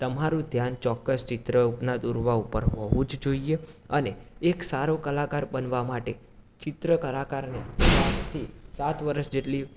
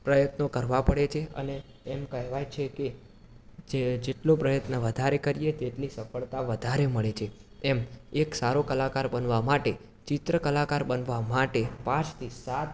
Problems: background sounds at intervals, background conversations at intervals